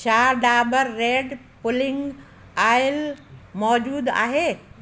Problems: constant background noise, echo